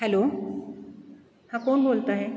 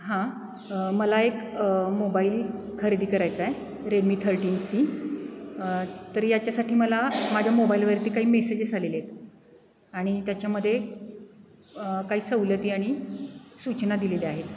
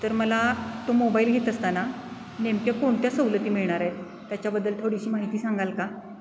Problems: none marked